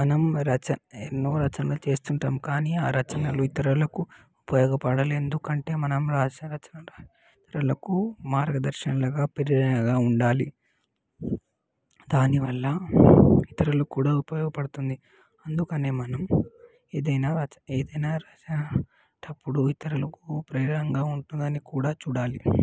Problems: background sounds at intervals, background conversations at intervals